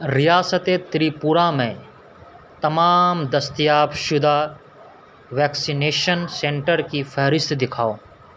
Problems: constant background noise